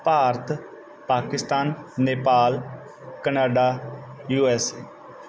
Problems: background sounds at intervals